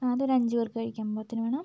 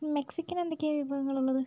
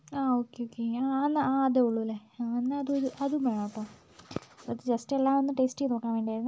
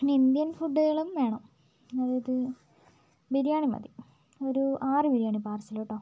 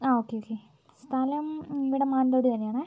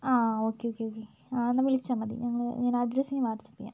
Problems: low volume